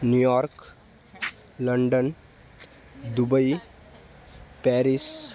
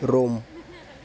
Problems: constant background noise, continuous background conversations